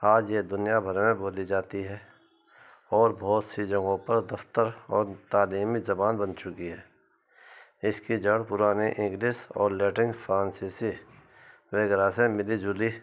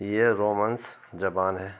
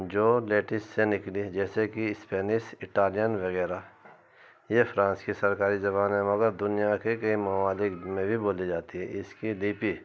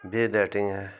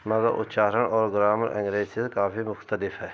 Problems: constant background noise